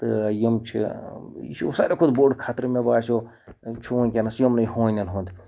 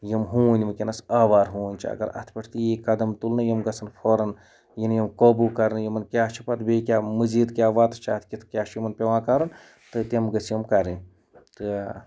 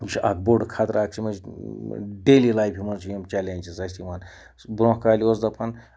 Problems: background sounds at intervals